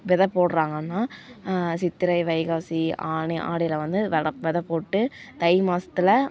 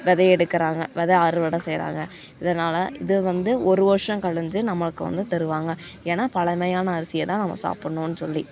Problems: none marked